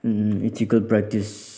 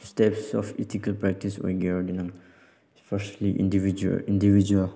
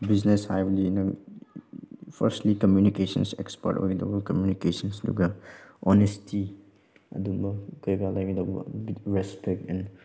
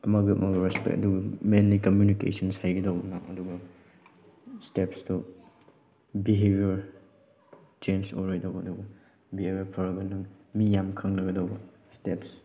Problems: background sounds at intervals